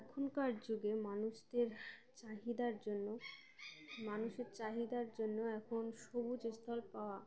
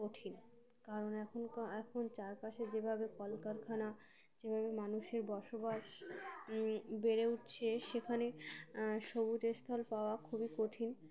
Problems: none marked